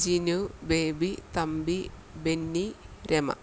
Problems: constant background noise